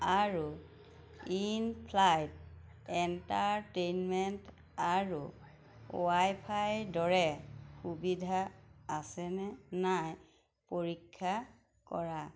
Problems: none marked